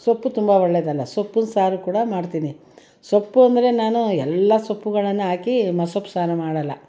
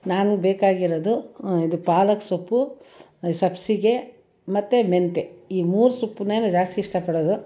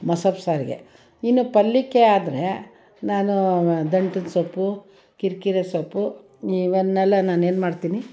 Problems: background sounds at intervals, background conversations at intervals